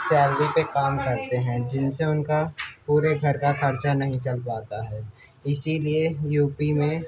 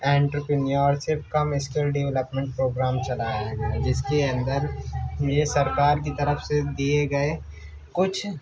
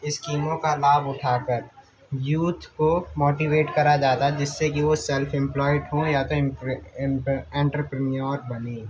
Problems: constant background noise, background conversations at intervals